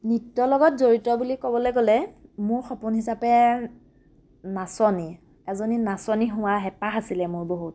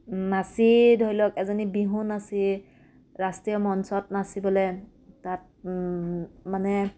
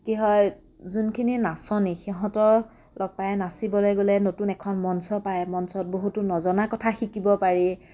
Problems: none marked